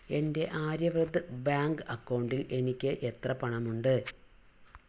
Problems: low volume